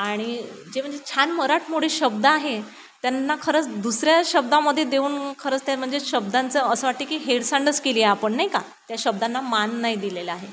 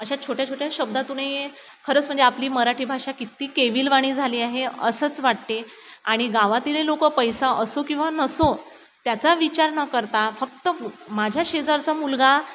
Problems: constant background noise